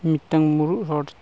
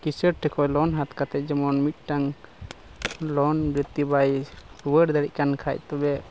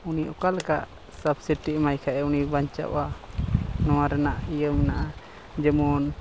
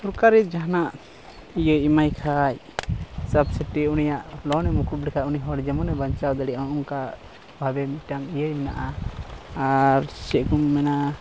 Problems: constant background noise